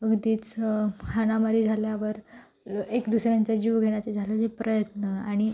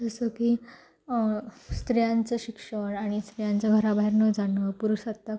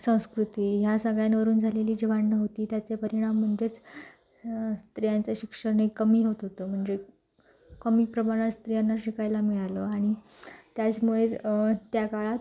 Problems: background sounds at intervals